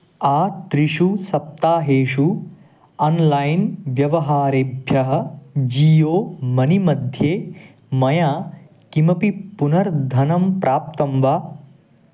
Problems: none marked